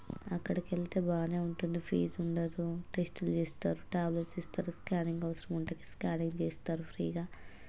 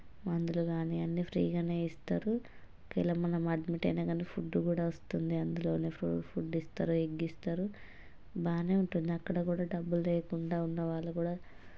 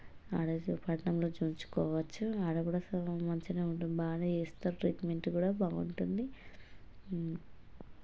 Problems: low volume